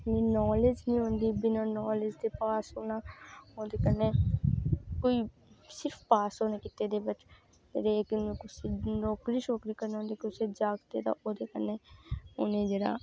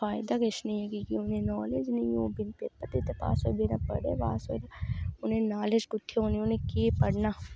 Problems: background sounds at intervals